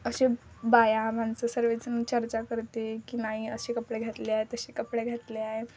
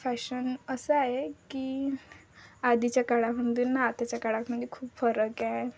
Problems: none marked